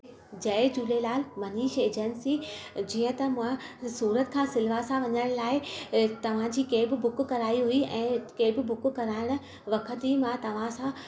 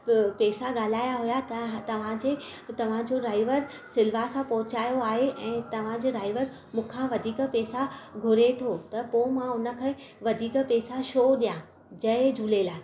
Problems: constant background noise, low volume